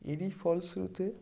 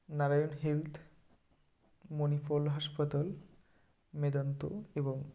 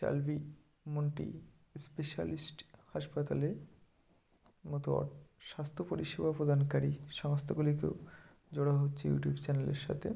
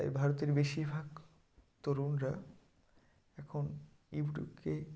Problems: background sounds at intervals